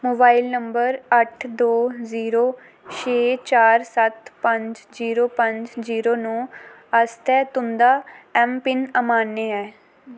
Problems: none marked